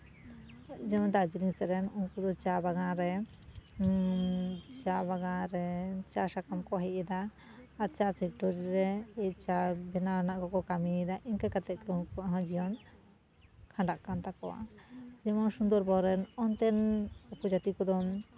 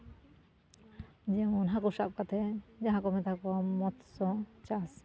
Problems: none marked